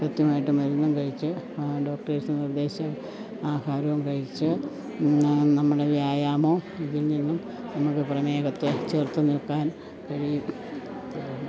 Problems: none marked